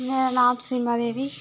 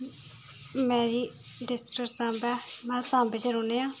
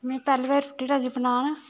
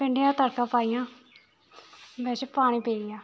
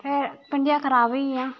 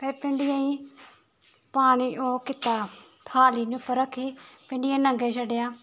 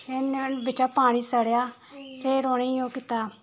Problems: background sounds at intervals